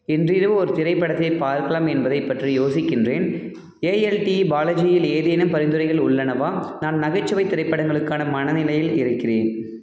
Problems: background sounds at intervals